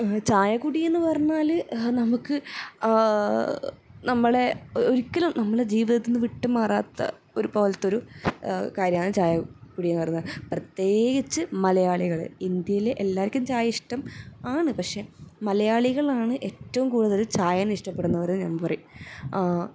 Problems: none marked